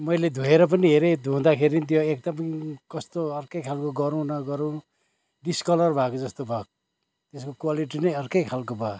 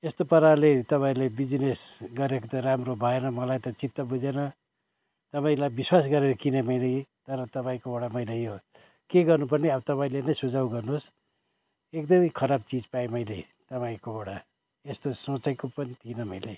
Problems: constant background noise